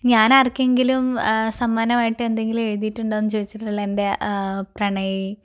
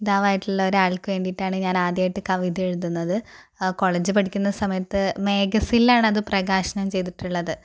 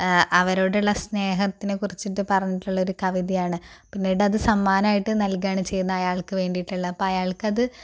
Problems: none marked